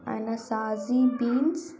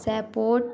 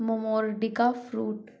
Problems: constant background noise